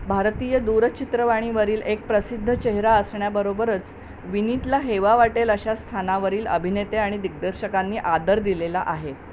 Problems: none marked